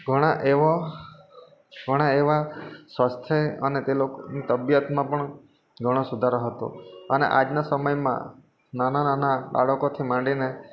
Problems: constant background noise